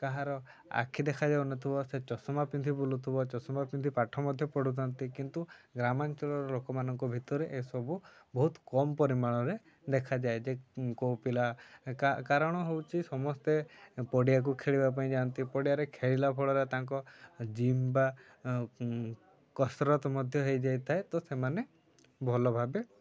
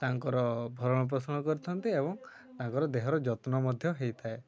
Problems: low volume